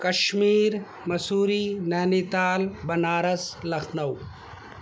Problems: constant background noise